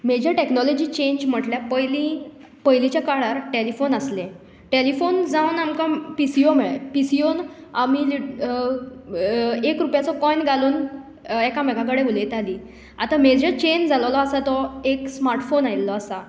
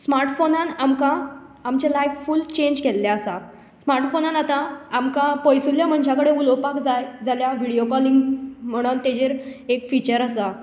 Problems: none marked